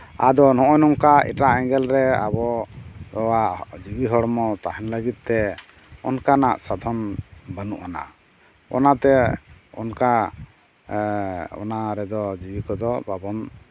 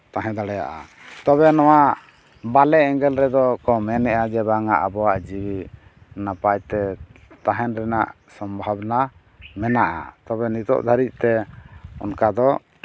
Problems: none marked